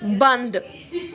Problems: background conversations at intervals